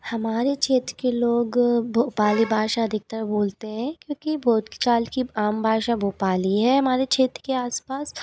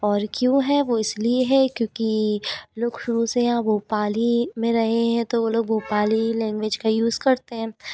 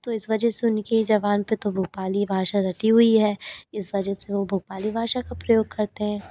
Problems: none marked